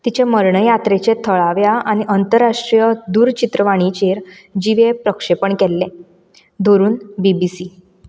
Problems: none marked